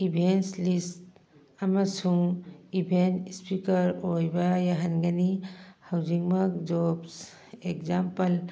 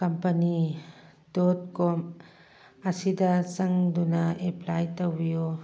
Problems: background conversations at intervals